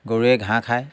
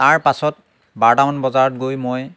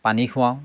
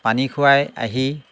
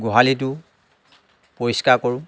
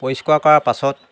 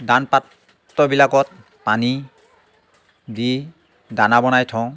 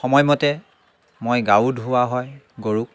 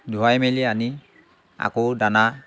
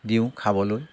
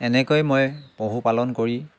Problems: background sounds at intervals, background conversations at intervals